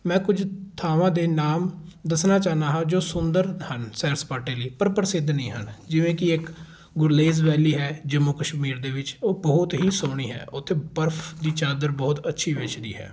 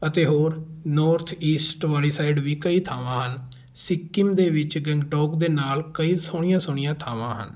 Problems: background sounds at intervals